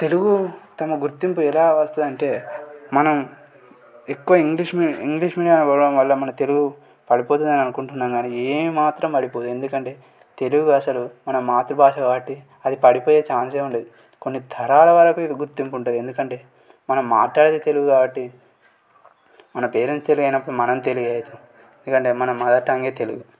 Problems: none marked